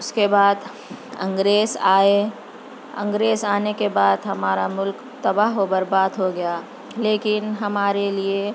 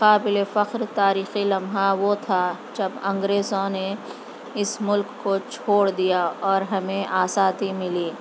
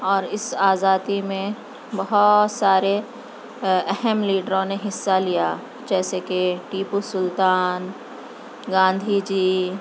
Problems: constant background noise